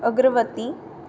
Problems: background sounds at intervals